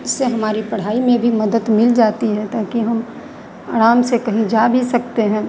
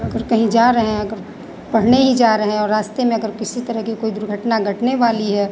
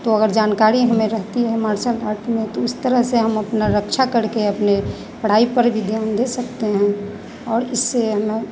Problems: none marked